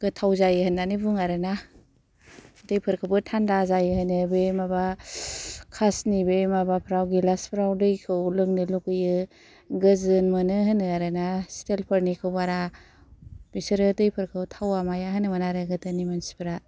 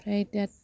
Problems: low volume